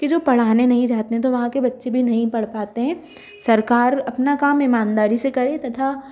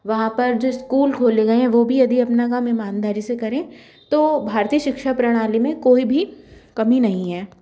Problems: constant background noise